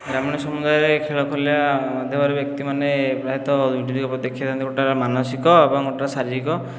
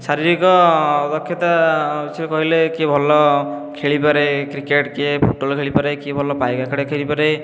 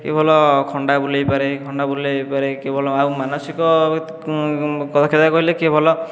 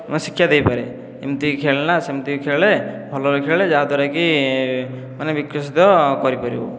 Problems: none marked